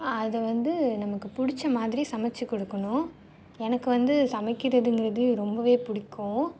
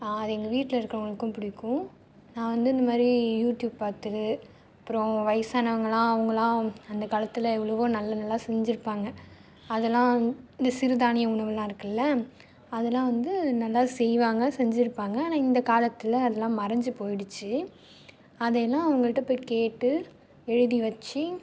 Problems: none marked